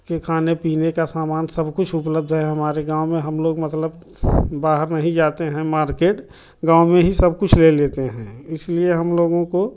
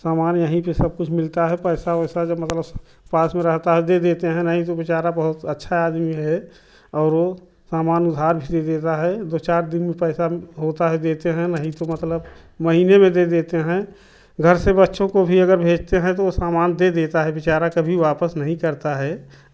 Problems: none marked